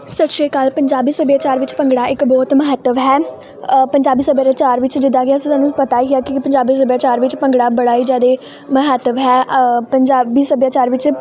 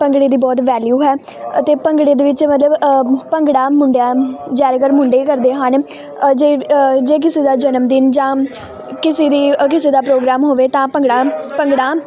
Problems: constant background noise